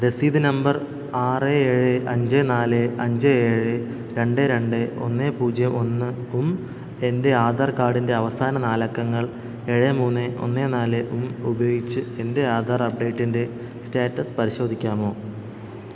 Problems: echo